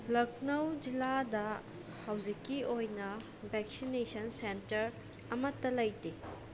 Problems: none marked